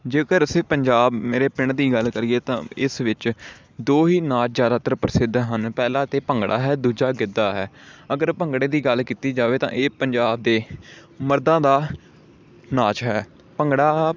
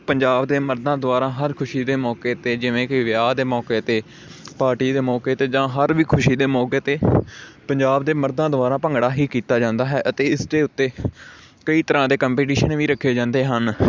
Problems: background sounds at intervals